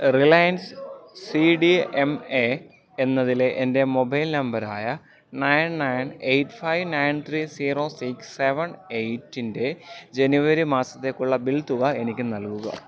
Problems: background sounds at intervals